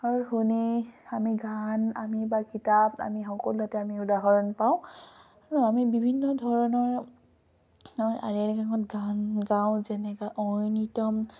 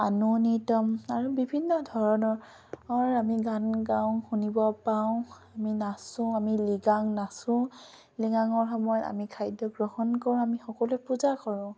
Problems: none marked